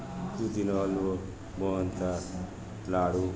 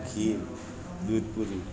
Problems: constant background noise, continuous background conversations